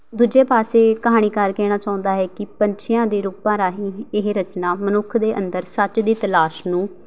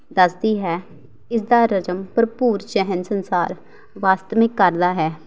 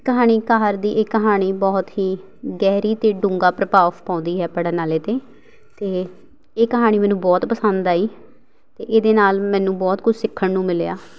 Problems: background sounds at intervals